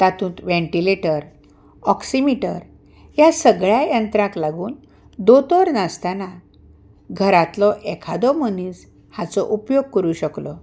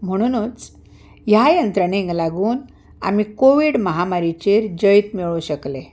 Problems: none marked